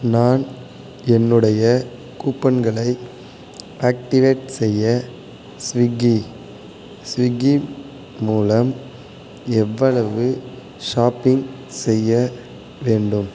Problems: constant background noise